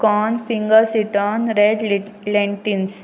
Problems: constant background noise